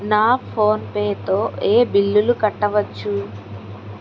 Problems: constant background noise